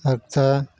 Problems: none marked